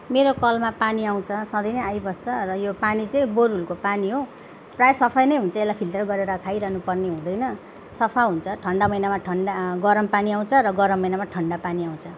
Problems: none marked